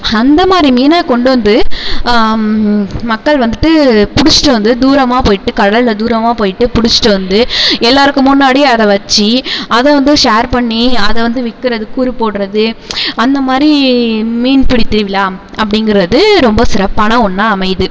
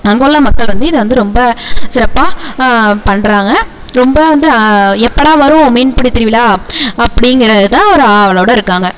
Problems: constant background noise, low volume